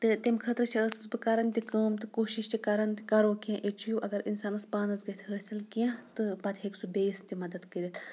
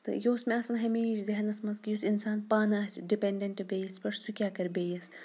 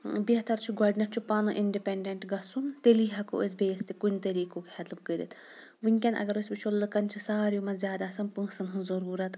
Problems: background sounds at intervals, low volume